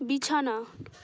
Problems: constant background noise